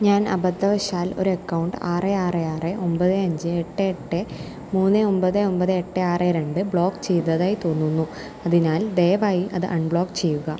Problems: low volume